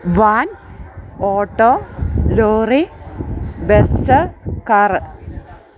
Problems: background sounds at intervals